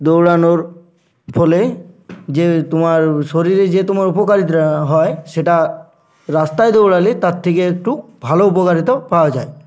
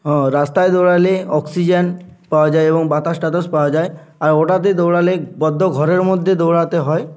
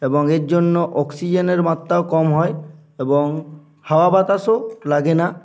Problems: constant background noise